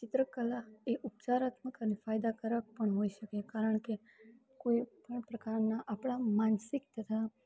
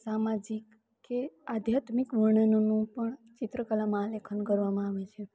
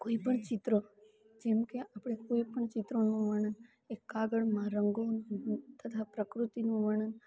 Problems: none marked